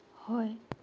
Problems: low volume